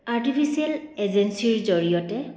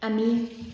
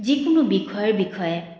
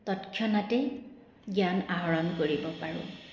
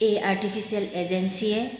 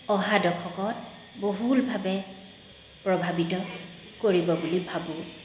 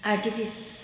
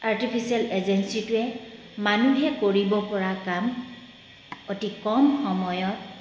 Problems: background sounds at intervals